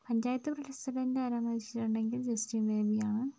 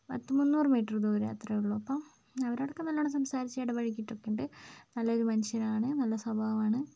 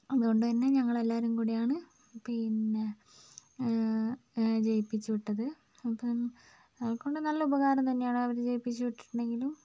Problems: low volume